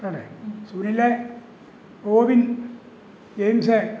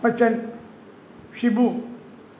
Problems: constant background noise, background conversations at intervals